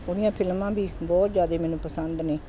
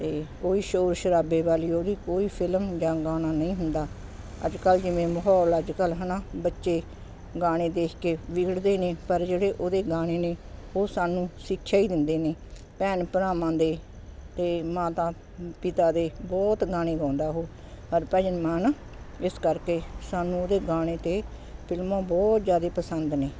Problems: constant background noise